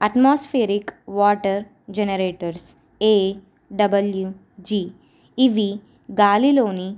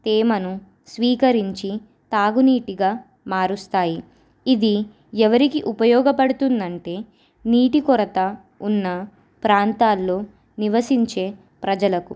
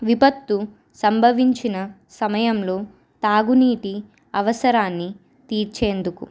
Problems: none marked